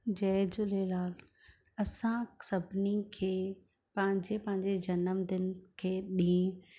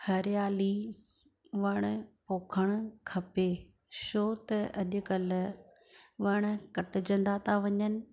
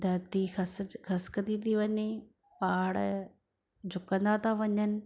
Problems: none marked